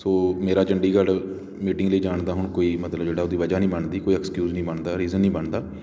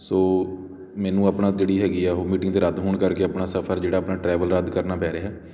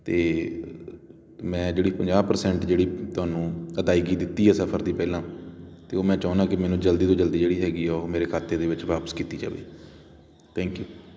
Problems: constant background noise